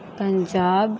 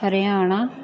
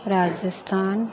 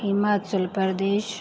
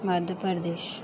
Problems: background sounds at intervals